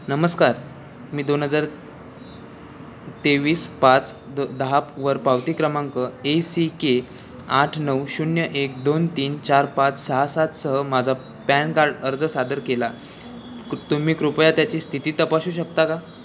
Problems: constant background noise, background conversations at intervals